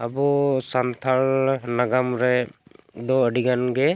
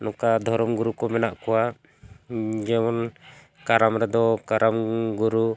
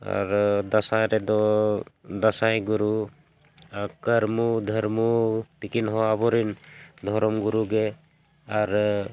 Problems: none marked